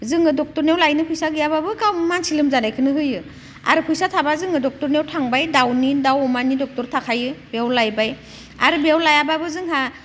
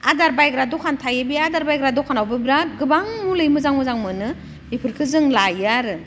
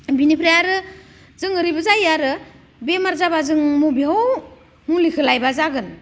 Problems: none marked